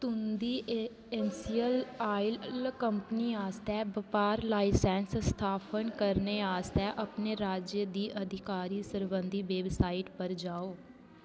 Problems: constant background noise